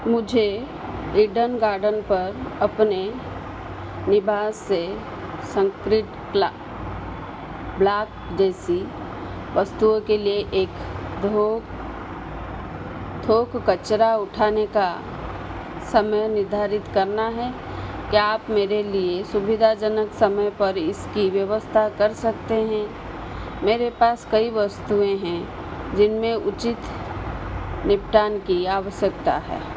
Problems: constant background noise